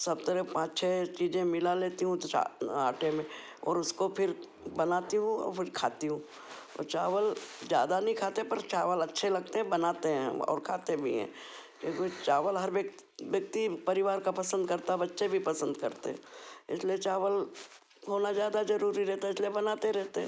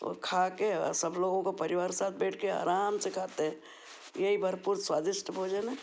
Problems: background sounds at intervals